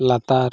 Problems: none marked